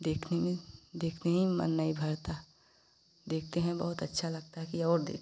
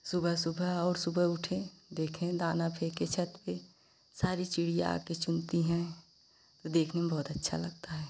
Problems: constant background noise